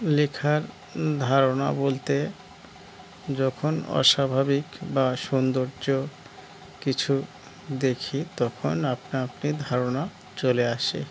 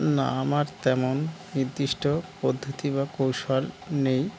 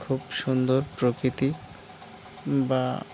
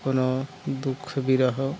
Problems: background sounds at intervals